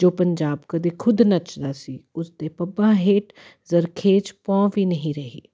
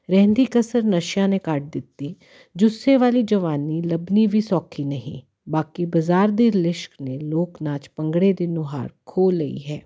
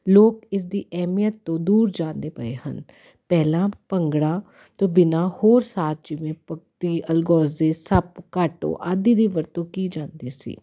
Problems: constant background noise